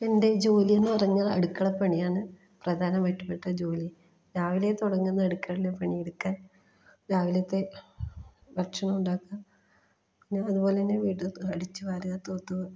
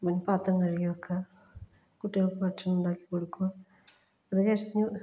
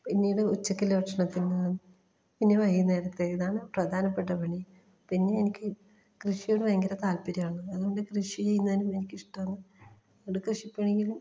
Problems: low volume